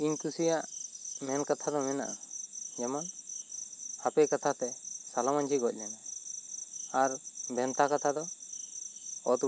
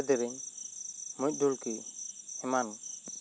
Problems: constant background noise